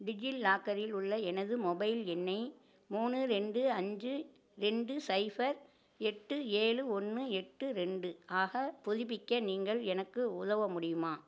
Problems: low volume